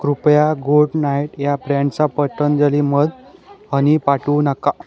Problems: background sounds at intervals, continuous background conversations